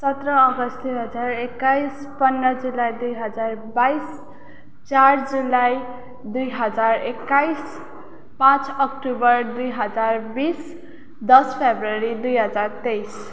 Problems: none marked